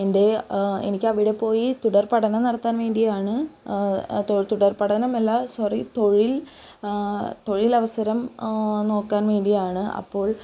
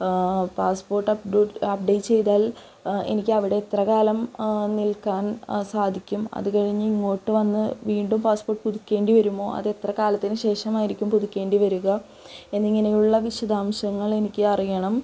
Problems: constant background noise, low volume